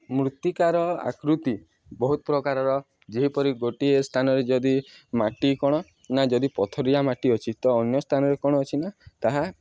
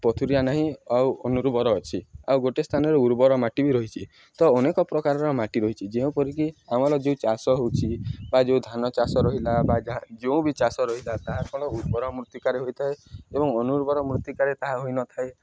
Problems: background sounds at intervals